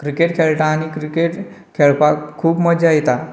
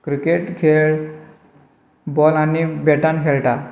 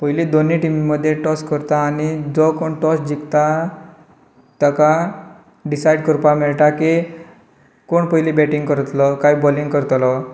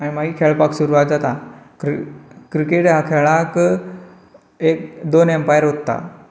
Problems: low volume